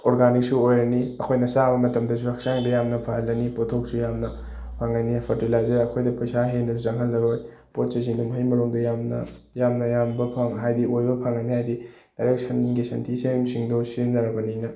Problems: background sounds at intervals